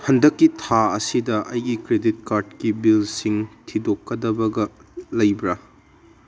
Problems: none marked